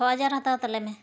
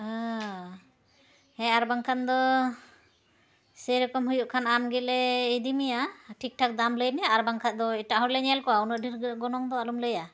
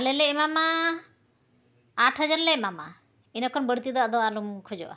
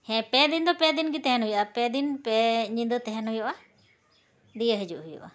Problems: constant background noise, background conversations at intervals